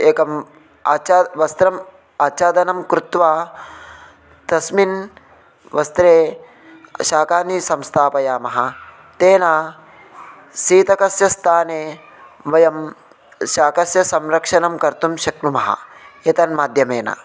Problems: constant background noise, continuous background conversations